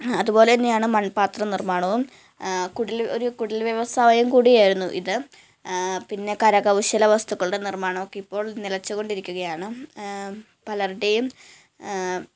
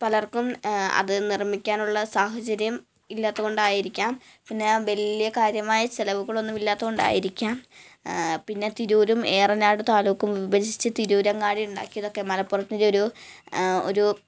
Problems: background sounds at intervals, low volume